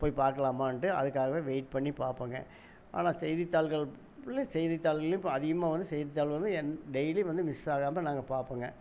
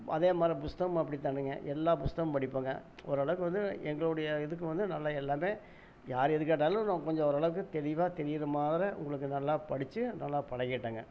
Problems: none marked